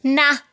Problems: background sounds at intervals